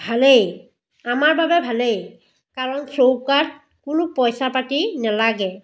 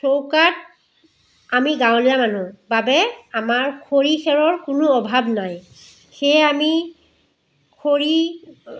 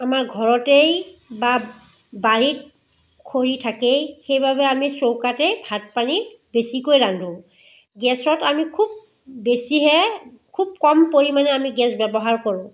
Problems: background sounds at intervals, background conversations at intervals